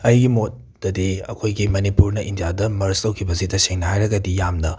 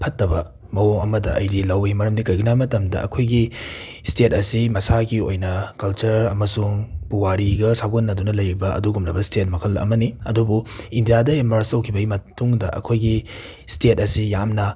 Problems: background sounds at intervals